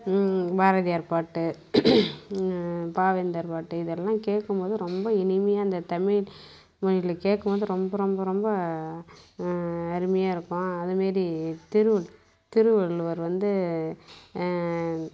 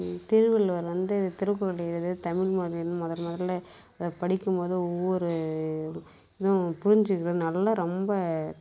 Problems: constant background noise